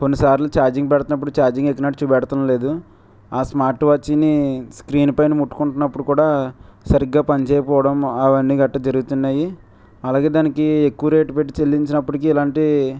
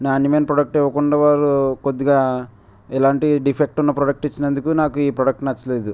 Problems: background sounds at intervals